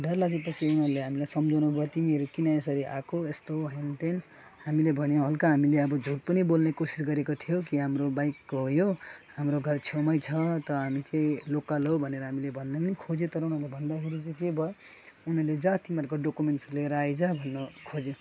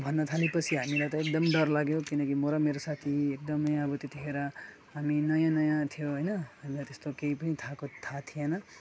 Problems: constant background noise, background conversations at intervals, low volume